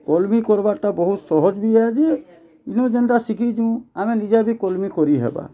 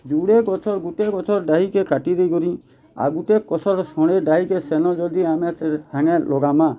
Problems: none marked